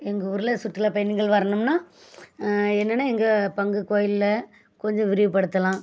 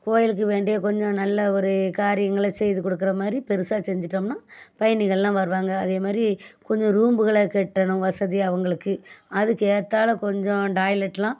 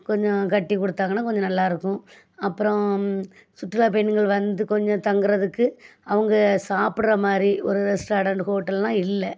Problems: none marked